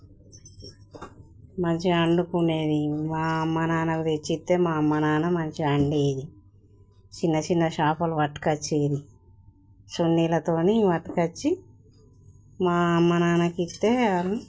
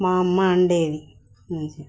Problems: none marked